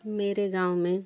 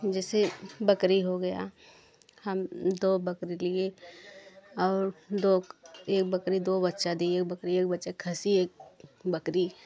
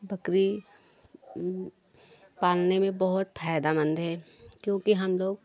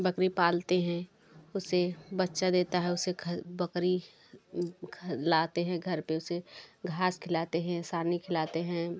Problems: continuous background conversations